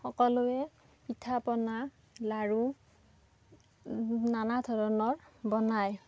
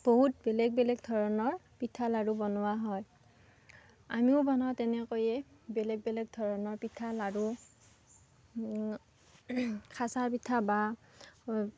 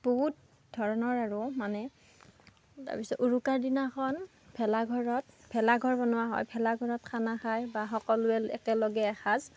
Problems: background sounds at intervals, background conversations at intervals